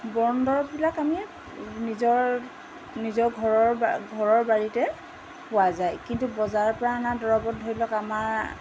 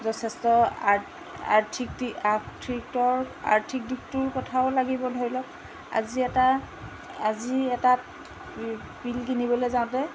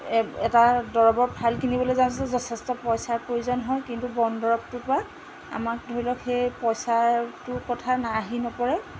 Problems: constant background noise